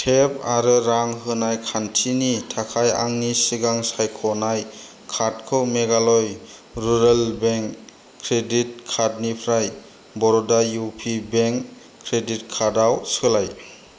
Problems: low volume